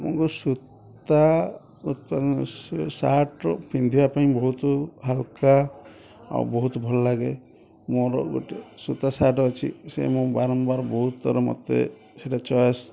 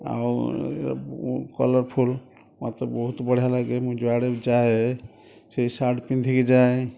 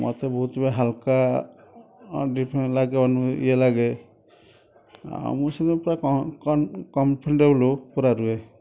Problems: constant background noise, continuous background conversations